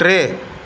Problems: constant background noise, echo